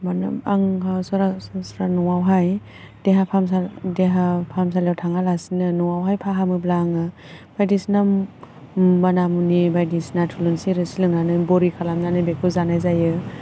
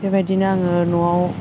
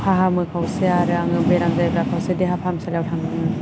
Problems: constant background noise